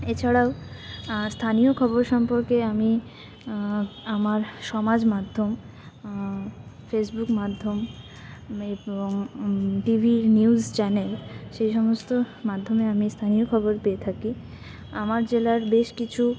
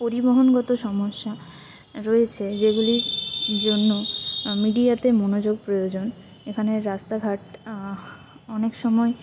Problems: constant background noise